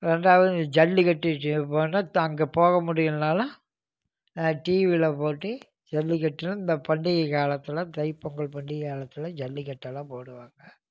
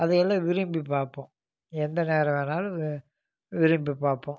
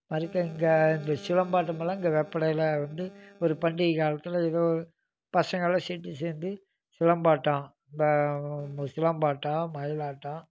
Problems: none marked